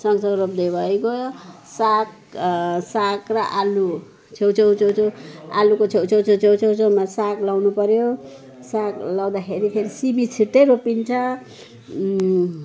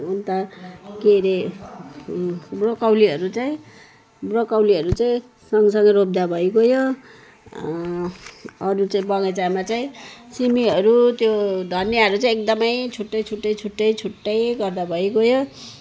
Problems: background sounds at intervals